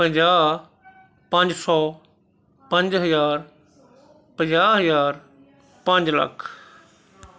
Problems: continuous background conversations